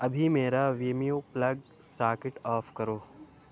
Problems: constant background noise